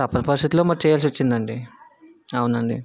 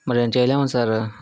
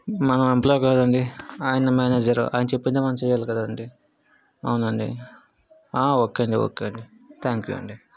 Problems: background conversations at intervals